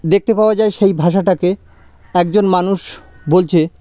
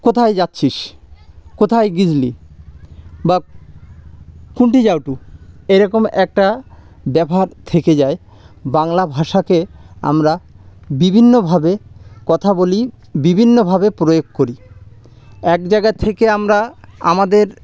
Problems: background sounds at intervals